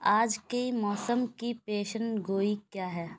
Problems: none marked